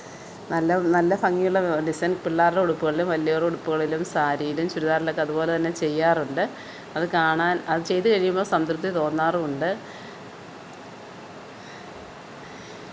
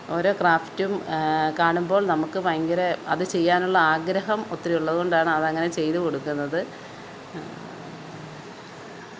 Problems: background sounds at intervals